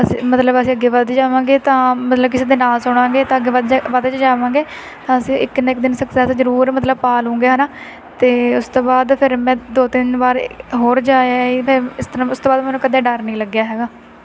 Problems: constant background noise